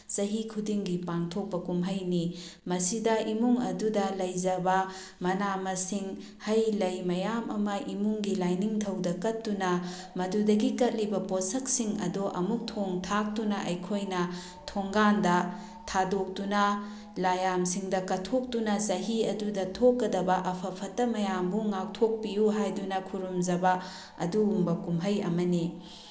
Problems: background sounds at intervals